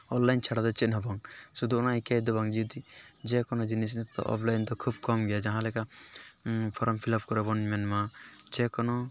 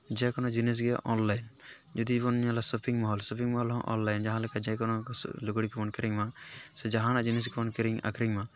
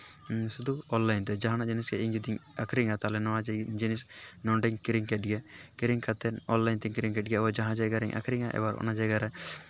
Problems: background sounds at intervals